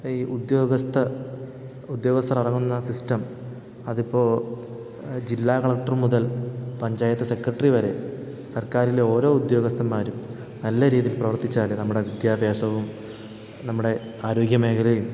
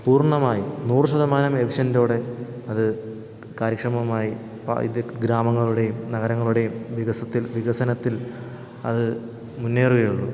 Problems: none marked